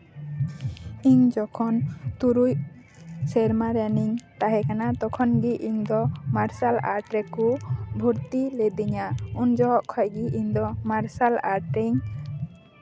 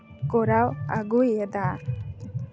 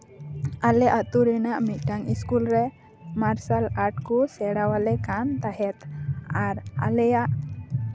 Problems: constant background noise